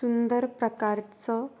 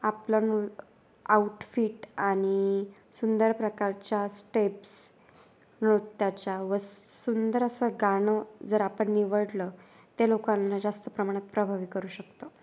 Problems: none marked